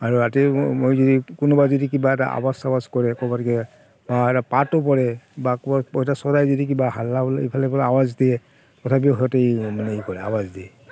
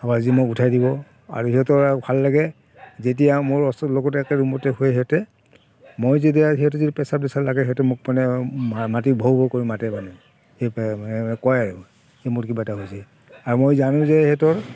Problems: constant background noise, background conversations at intervals